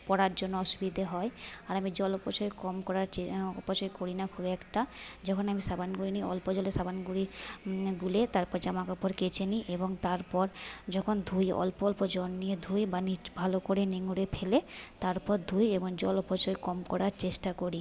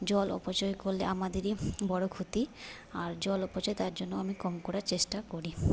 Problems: background conversations at intervals